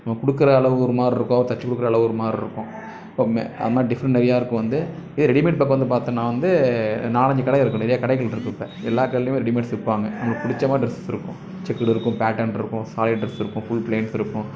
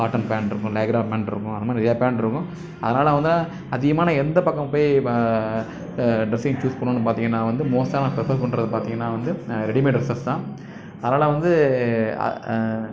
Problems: constant background noise, background conversations at intervals